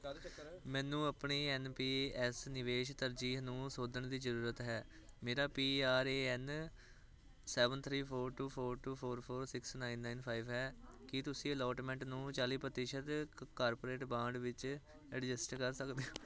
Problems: constant background noise